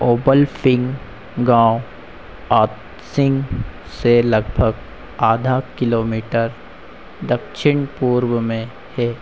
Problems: constant background noise